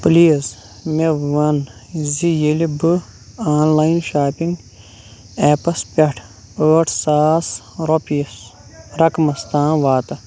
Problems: background sounds at intervals